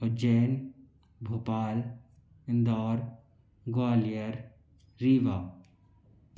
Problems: none marked